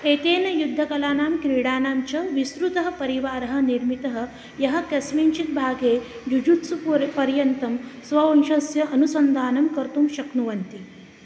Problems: constant background noise